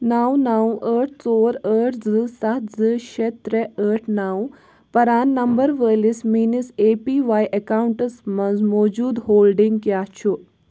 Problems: background sounds at intervals